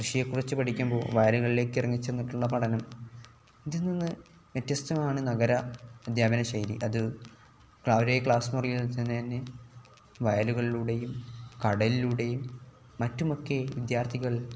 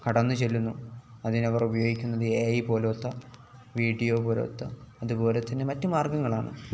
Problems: background sounds at intervals